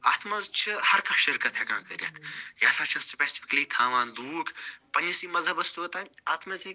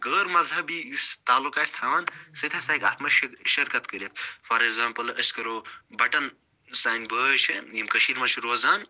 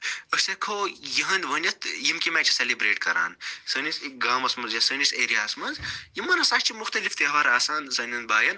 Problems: background sounds at intervals